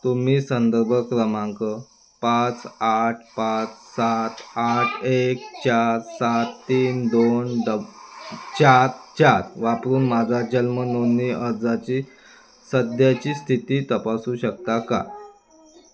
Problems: background sounds at intervals